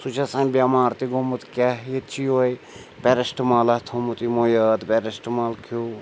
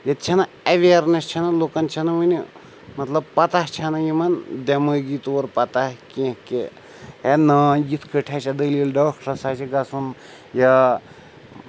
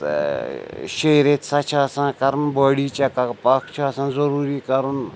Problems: constant background noise